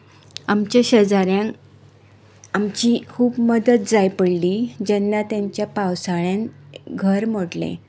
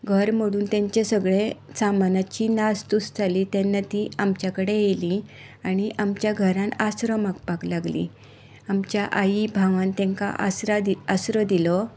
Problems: constant background noise